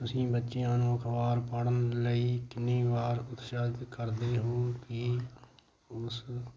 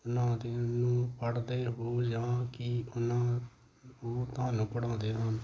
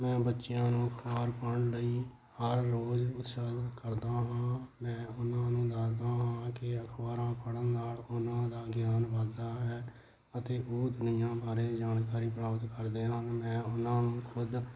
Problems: constant background noise